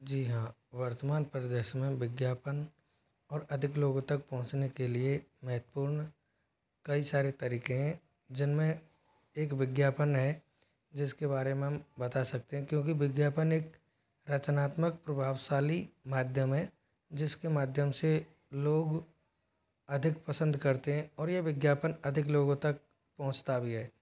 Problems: constant background noise